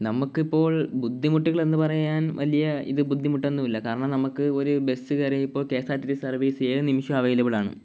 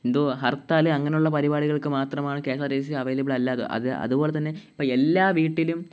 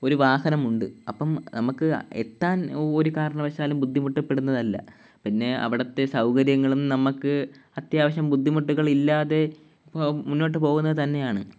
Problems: background sounds at intervals